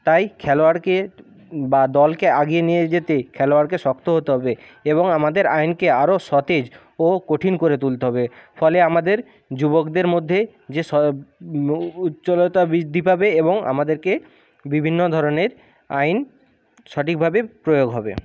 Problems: none marked